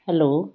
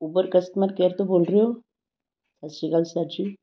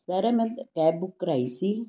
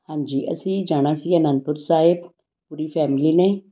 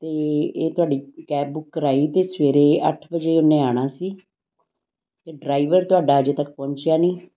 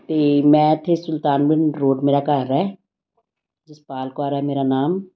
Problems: background sounds at intervals